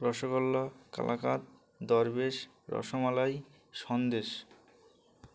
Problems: constant background noise